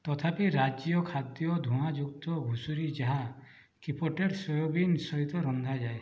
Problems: low volume